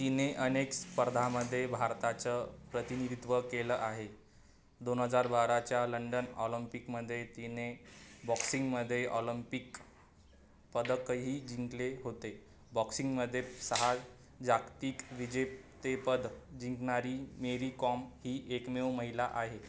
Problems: none marked